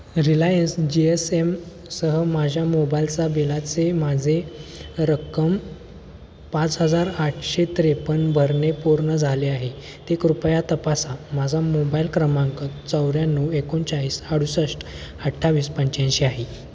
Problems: constant background noise